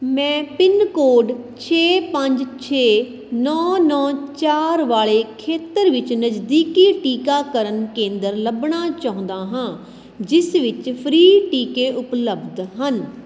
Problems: none marked